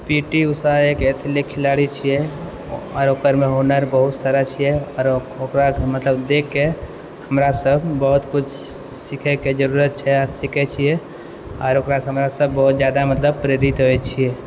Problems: none marked